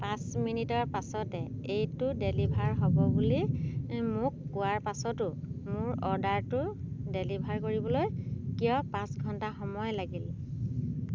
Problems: constant background noise